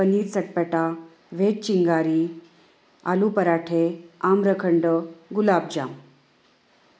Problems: constant background noise, echo